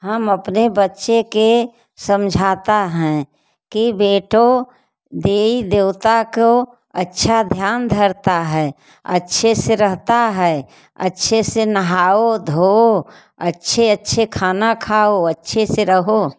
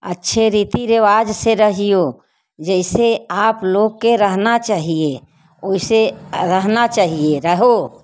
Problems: background sounds at intervals